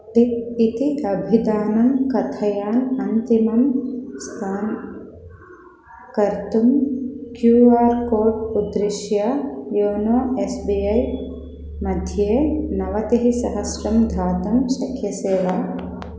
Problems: background sounds at intervals